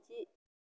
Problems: low volume